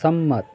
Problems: constant background noise, background conversations at intervals